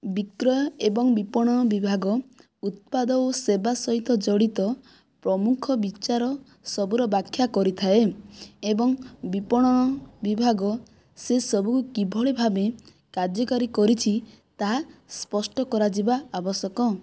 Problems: none marked